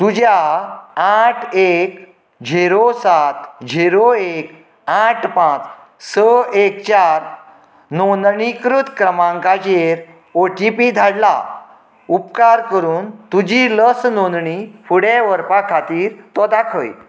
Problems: background conversations at intervals